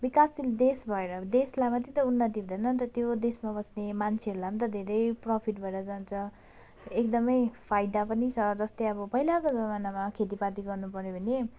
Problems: none marked